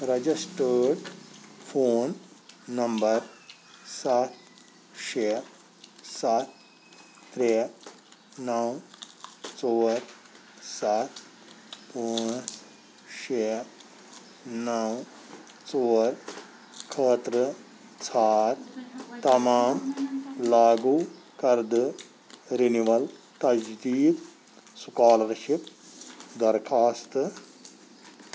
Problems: constant background noise